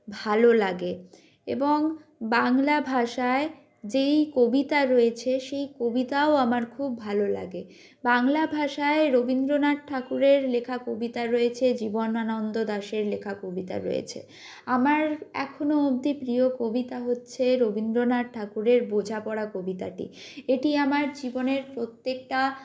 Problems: none marked